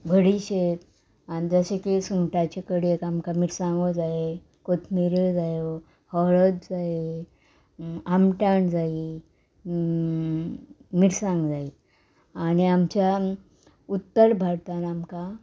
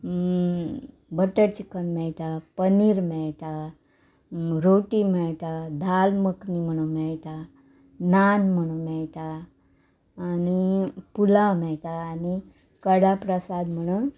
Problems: none marked